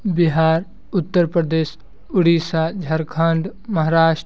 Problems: none marked